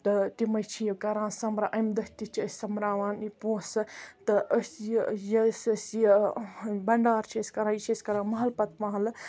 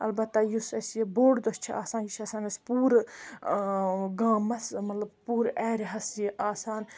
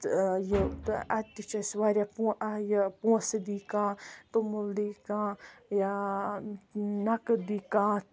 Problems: constant background noise